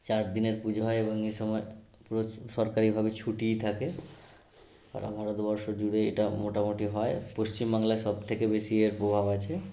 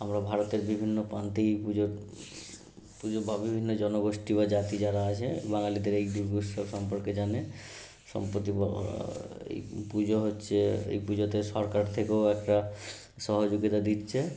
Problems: background sounds at intervals